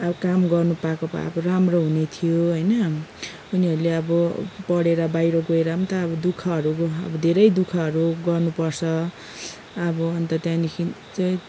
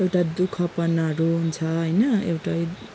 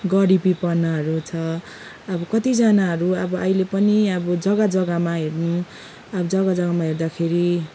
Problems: background sounds at intervals